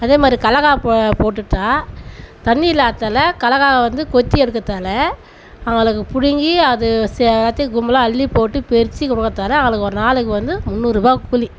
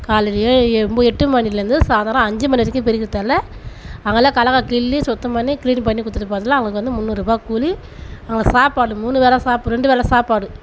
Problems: constant background noise